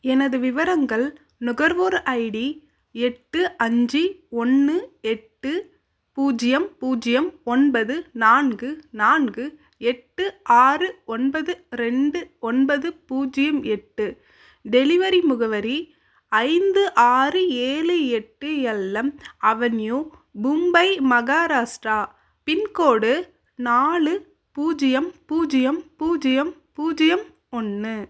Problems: none marked